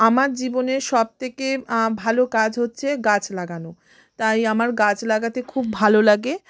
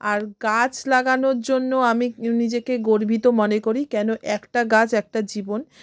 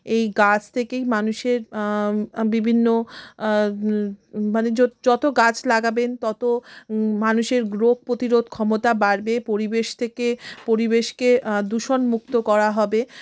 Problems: constant background noise